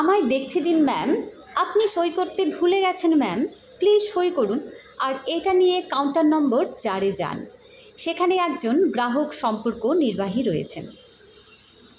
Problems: constant background noise